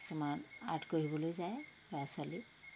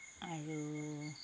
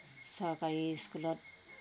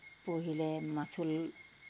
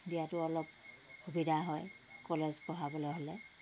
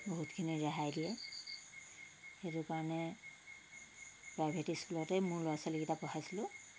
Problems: none marked